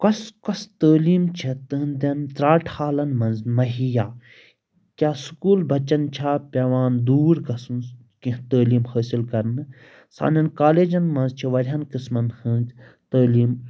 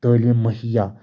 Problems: constant background noise